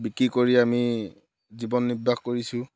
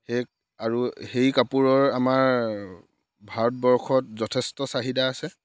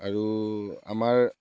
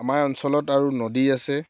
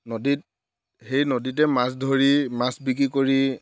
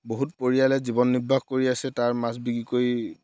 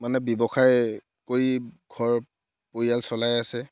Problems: background sounds at intervals